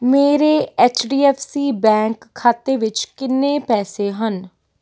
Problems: none marked